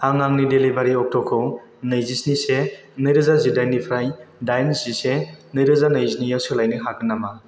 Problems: none marked